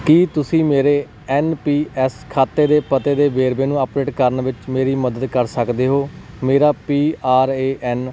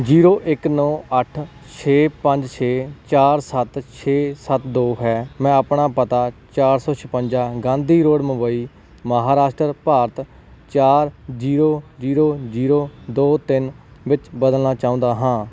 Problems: background sounds at intervals